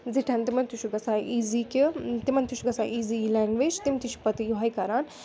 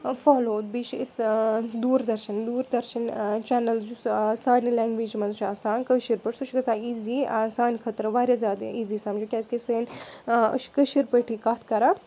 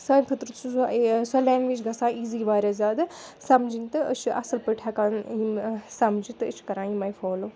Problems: background sounds at intervals